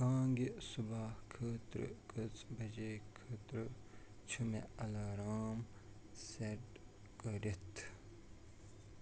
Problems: background sounds at intervals, low volume